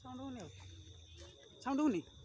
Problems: constant background noise, continuous background conversations